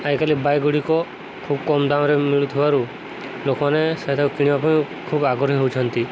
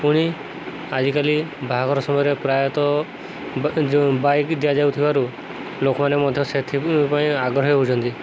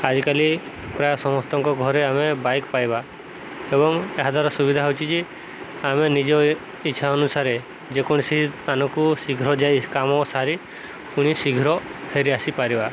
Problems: constant background noise